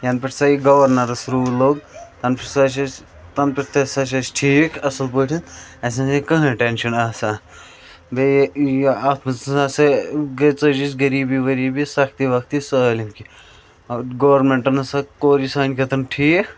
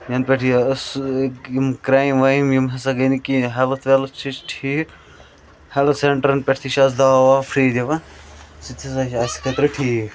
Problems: constant background noise